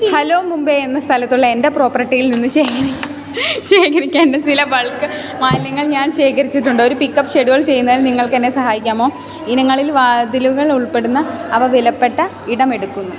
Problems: background sounds at intervals, background conversations at intervals